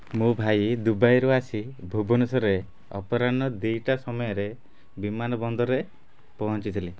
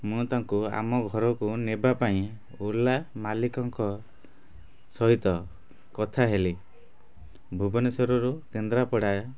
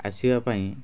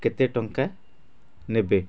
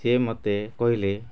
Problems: constant background noise